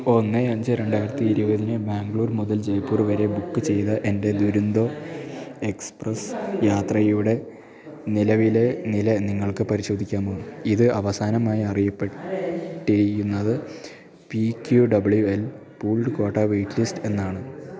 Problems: continuous background conversations